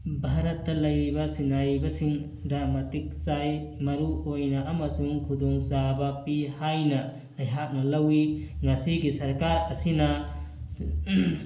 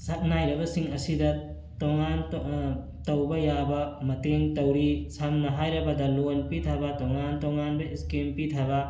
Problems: background sounds at intervals